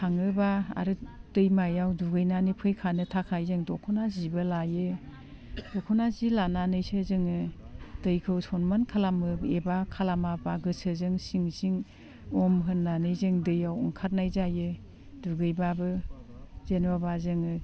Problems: none marked